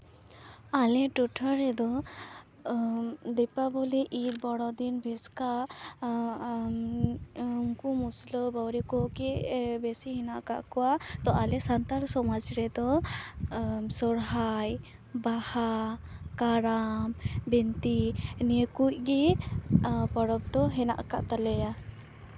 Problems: background sounds at intervals